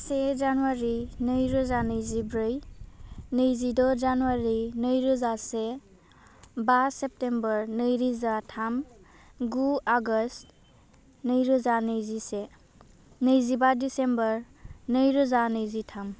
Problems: none marked